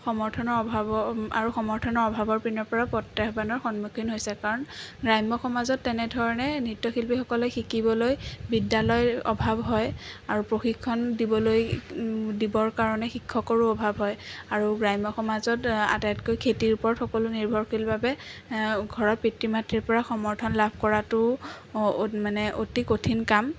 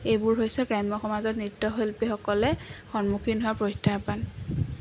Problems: constant background noise